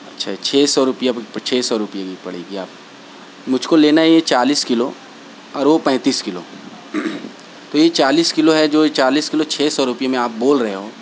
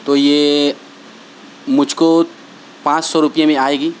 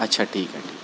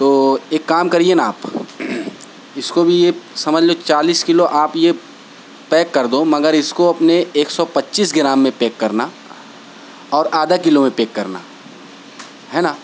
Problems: constant background noise